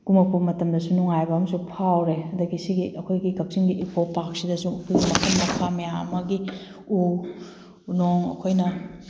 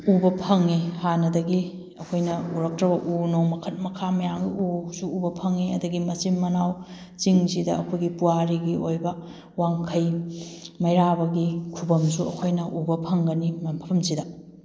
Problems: background sounds at intervals